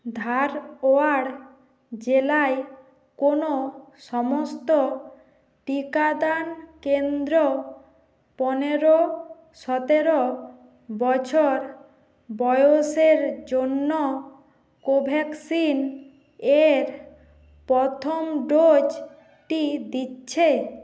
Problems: constant background noise